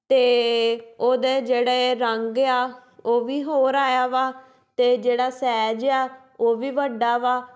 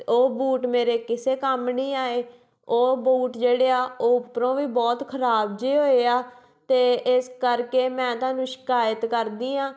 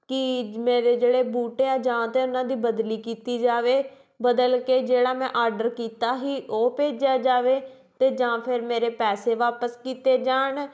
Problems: background sounds at intervals